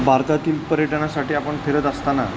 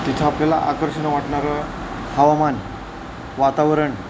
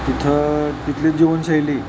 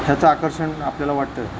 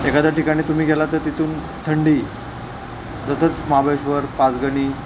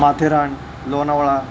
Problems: constant background noise